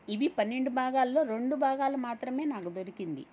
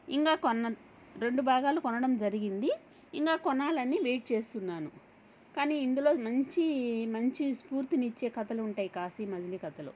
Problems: none marked